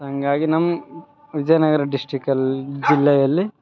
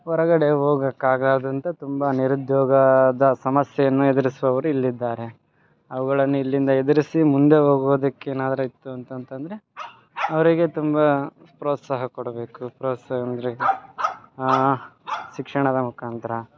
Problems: background sounds at intervals